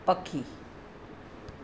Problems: constant background noise